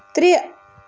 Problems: constant background noise